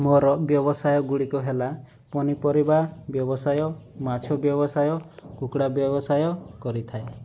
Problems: none marked